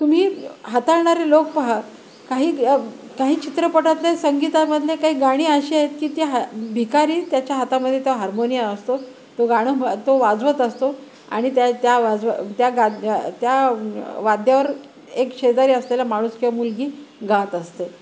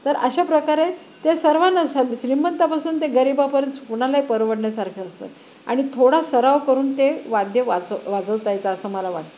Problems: none marked